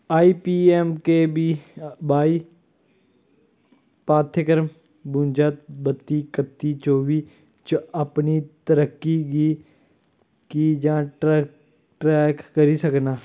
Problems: none marked